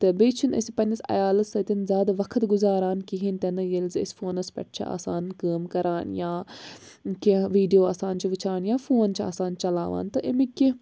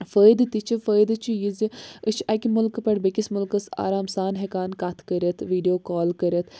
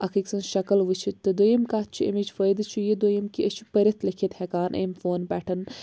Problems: none marked